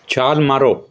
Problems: none marked